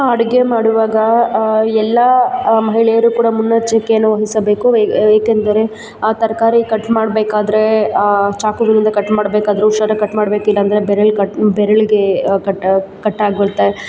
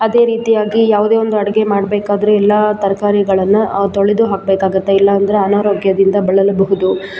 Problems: constant background noise